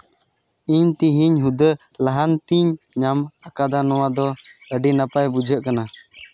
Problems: background sounds at intervals